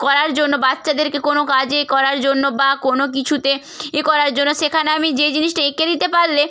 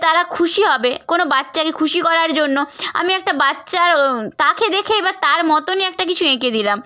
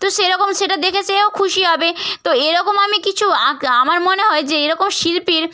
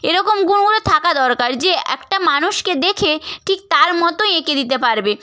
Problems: none marked